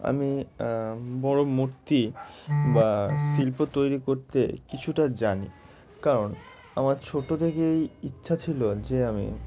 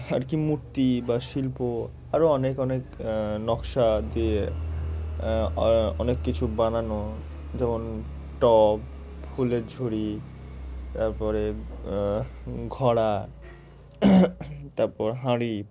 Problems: none marked